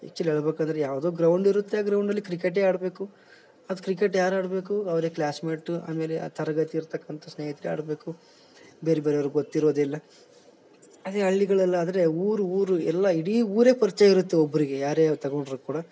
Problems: background sounds at intervals